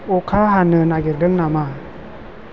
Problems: constant background noise